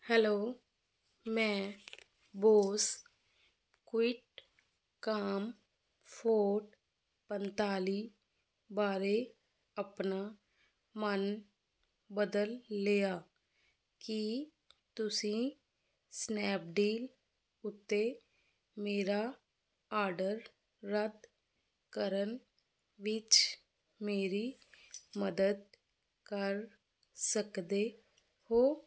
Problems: constant background noise